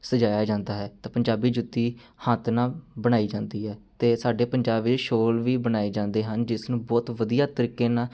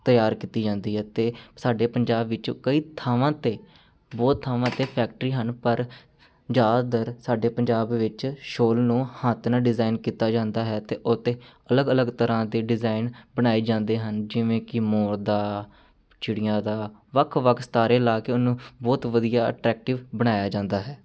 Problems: background sounds at intervals